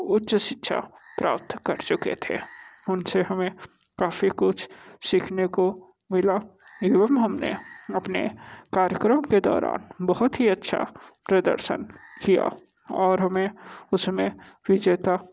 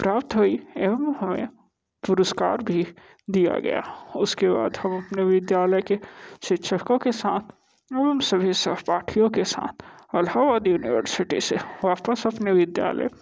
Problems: constant background noise